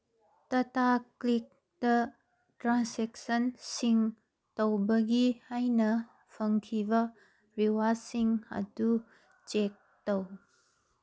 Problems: background sounds at intervals